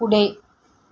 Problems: background sounds at intervals